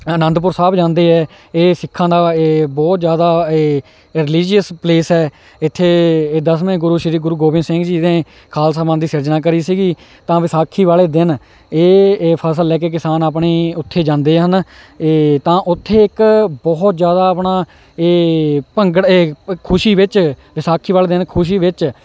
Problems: none marked